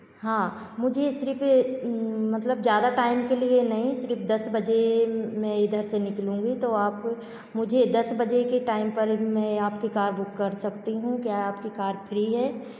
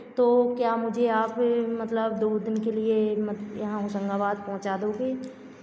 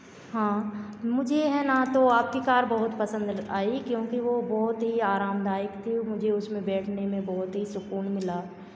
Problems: constant background noise